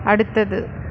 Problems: constant background noise